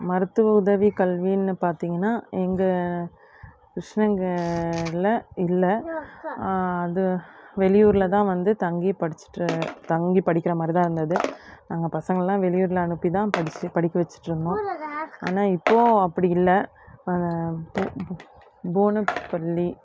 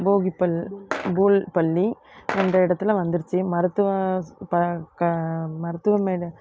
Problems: constant background noise